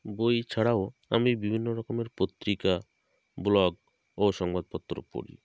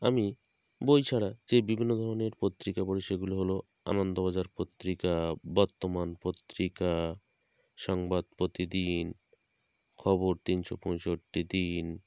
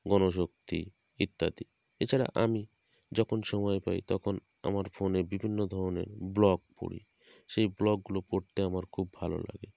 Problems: constant background noise